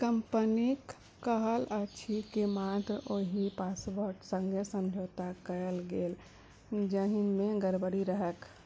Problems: background sounds at intervals, low volume